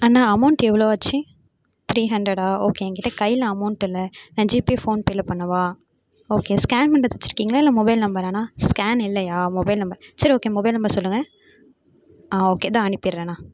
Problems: background sounds at intervals